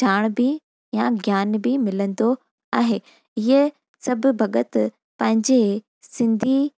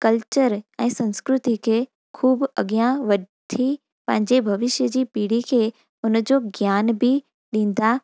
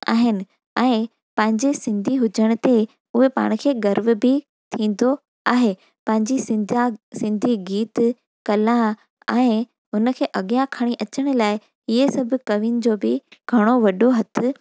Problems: none marked